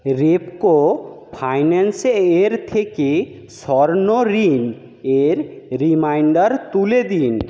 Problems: none marked